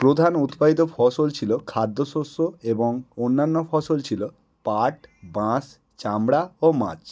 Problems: background sounds at intervals